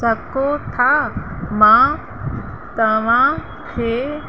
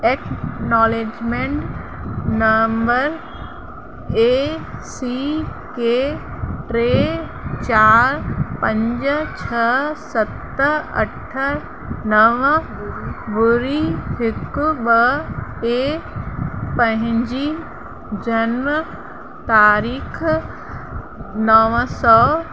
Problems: constant background noise